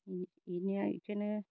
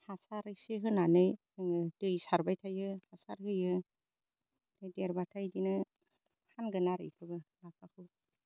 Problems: low volume